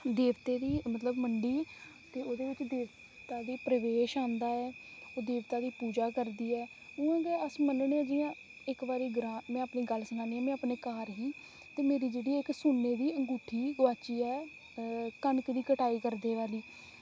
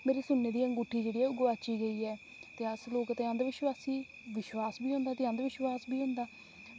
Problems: constant background noise